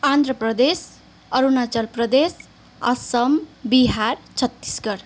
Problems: constant background noise